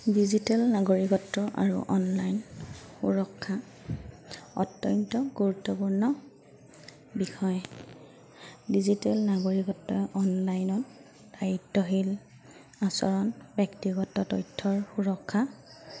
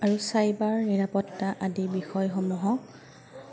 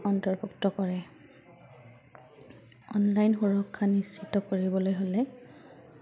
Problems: none marked